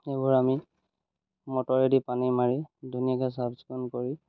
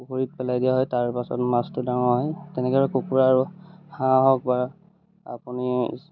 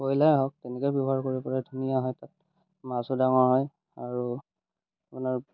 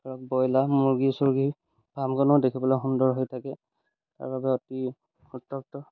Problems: none marked